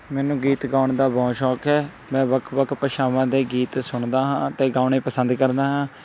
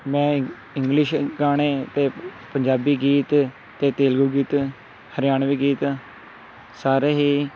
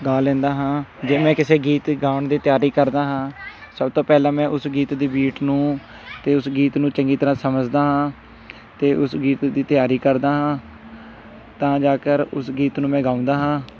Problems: background conversations at intervals